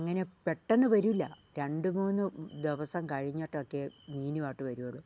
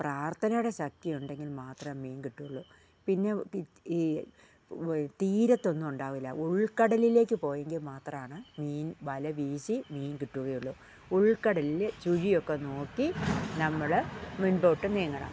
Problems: low volume